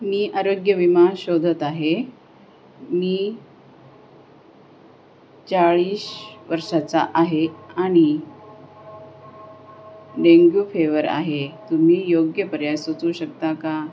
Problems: constant background noise